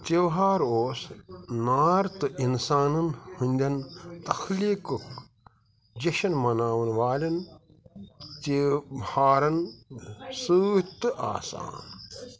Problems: constant background noise, background conversations at intervals